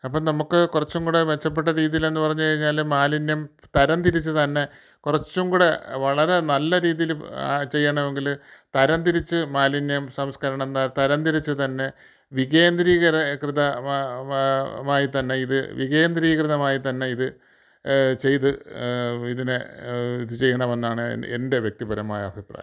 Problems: none marked